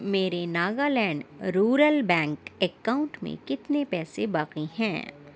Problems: constant background noise